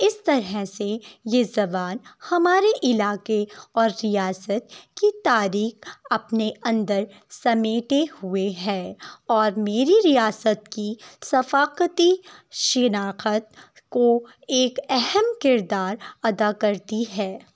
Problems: none marked